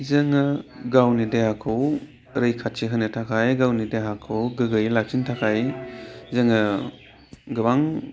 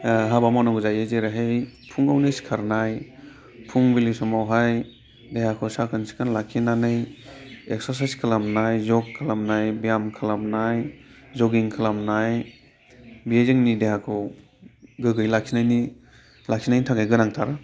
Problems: constant background noise